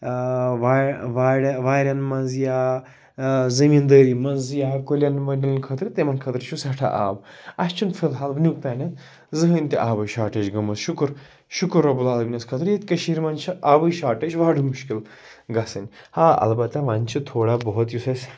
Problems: background sounds at intervals